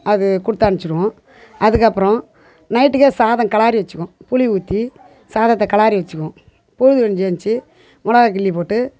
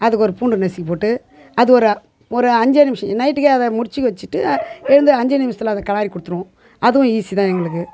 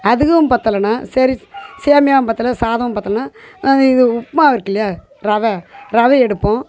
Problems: background sounds at intervals, background conversations at intervals